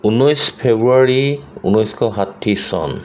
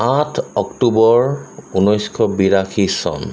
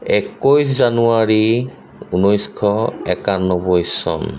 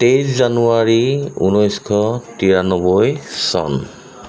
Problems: none marked